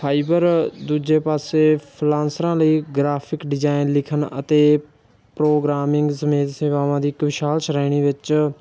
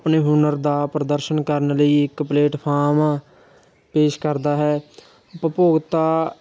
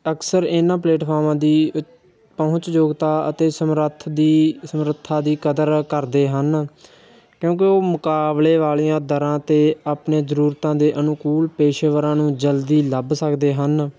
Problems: none marked